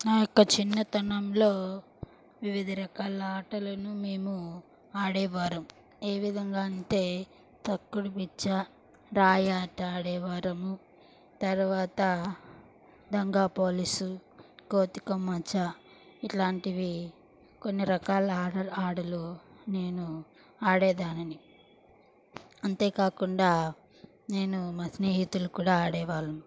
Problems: background sounds at intervals